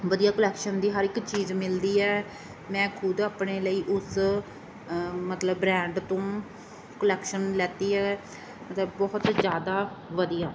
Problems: background sounds at intervals